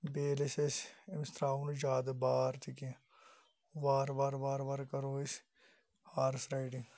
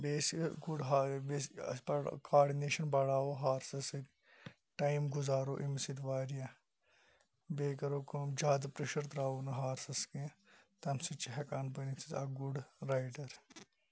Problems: background sounds at intervals